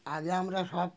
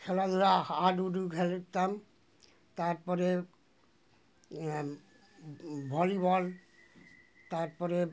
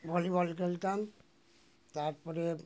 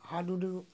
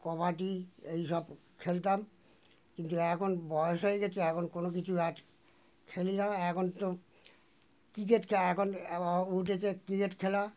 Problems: constant background noise